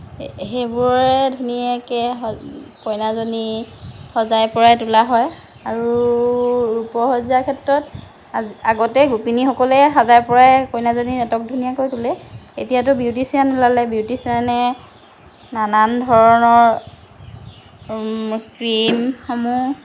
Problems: constant background noise